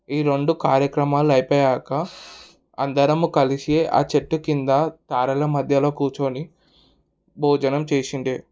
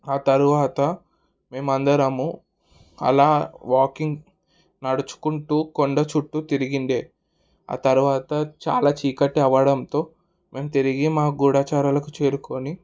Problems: background conversations at intervals